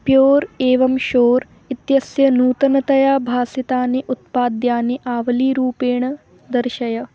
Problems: none marked